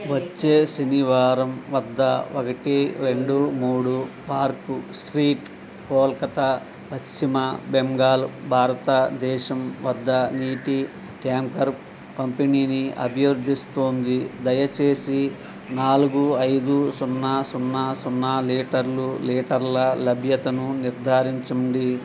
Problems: constant background noise